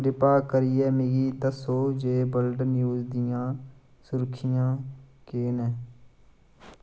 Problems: constant background noise